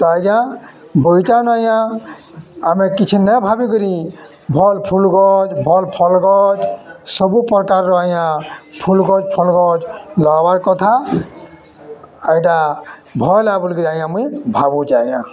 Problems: constant background noise, continuous background conversations